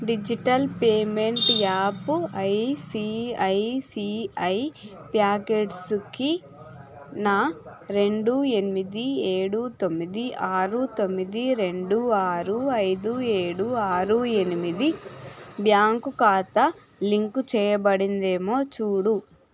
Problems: constant background noise, background conversations at intervals